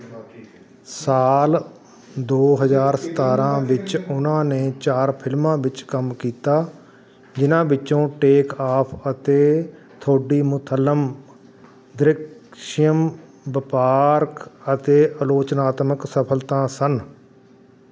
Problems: constant background noise, background conversations at intervals